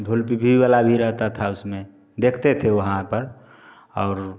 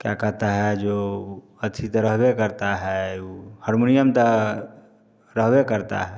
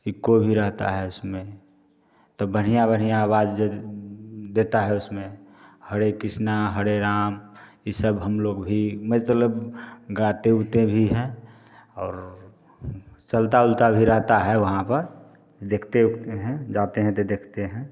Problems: constant background noise